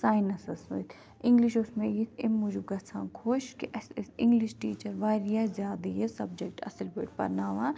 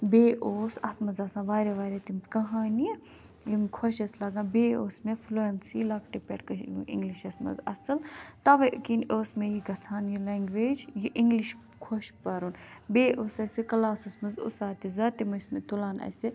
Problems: none marked